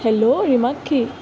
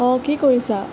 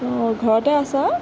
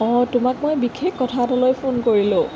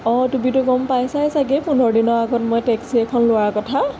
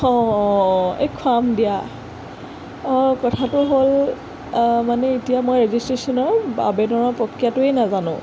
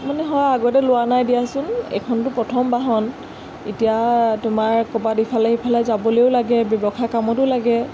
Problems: constant background noise